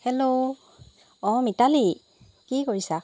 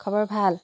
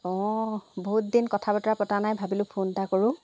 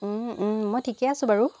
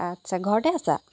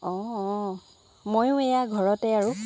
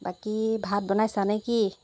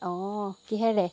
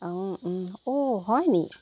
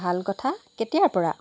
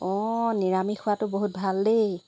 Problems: none marked